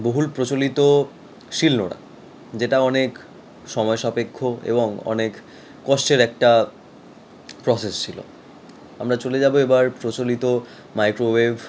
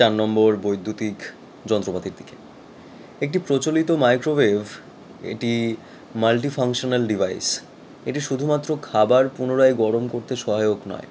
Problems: constant background noise